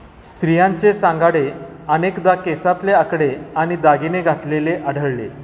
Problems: none marked